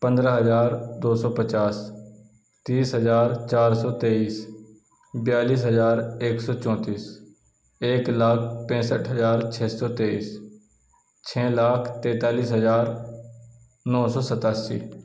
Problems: none marked